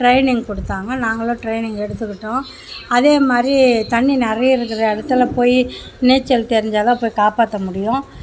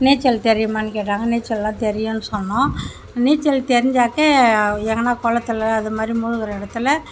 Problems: constant background noise